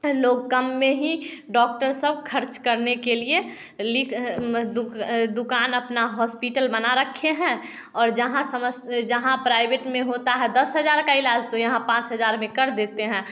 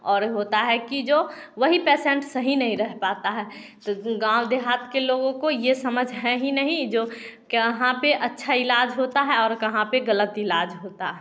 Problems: none marked